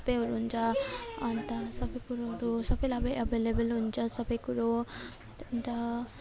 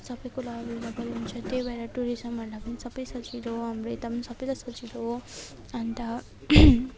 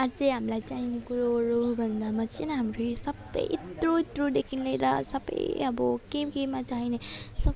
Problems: background sounds at intervals